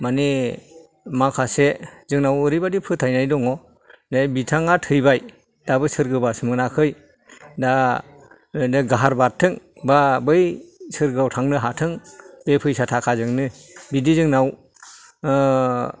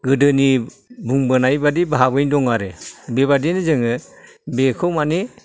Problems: background sounds at intervals, background conversations at intervals